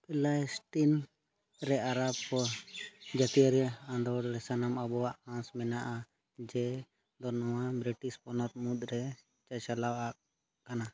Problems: none marked